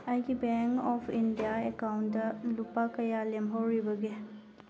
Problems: low volume